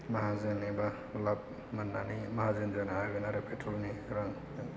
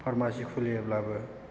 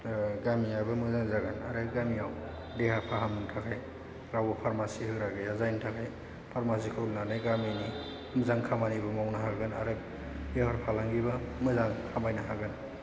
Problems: low volume